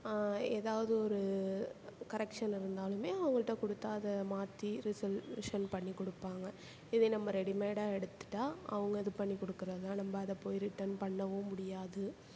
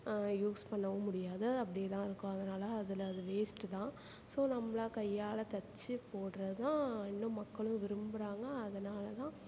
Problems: constant background noise